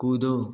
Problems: background sounds at intervals